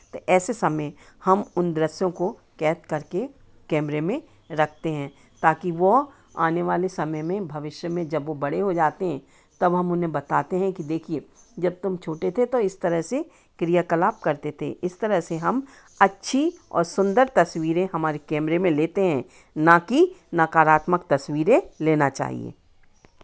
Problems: constant background noise